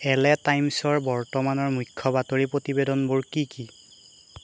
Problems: constant background noise